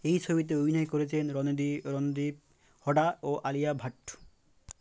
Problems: constant background noise